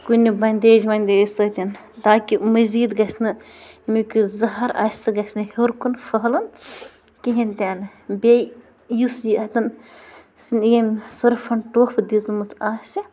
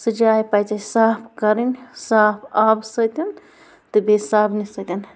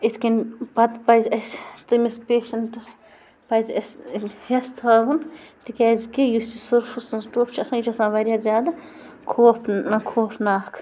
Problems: constant background noise